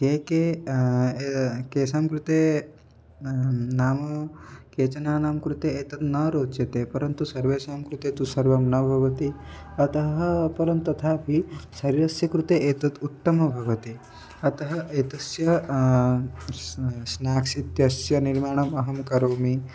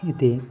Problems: none marked